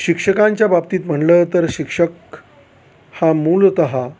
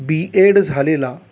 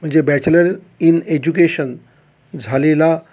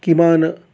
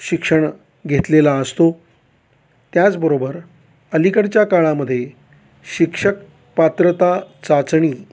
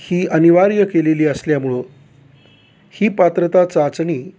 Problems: none marked